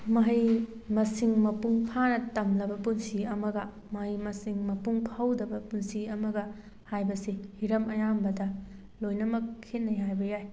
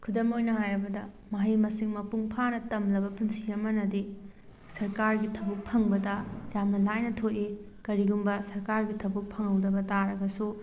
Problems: background sounds at intervals